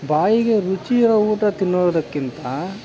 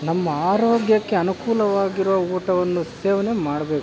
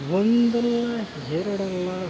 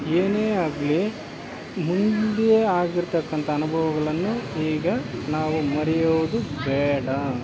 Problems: constant background noise